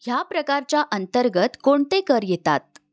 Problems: background sounds at intervals